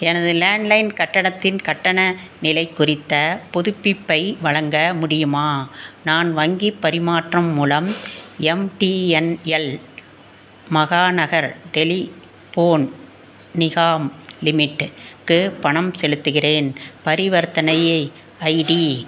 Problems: constant background noise